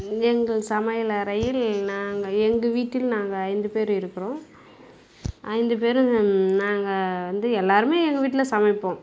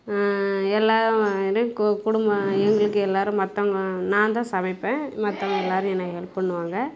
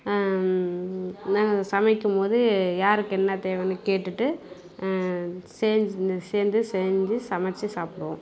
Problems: none marked